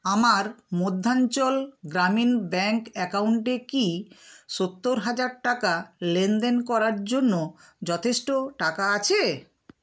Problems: constant background noise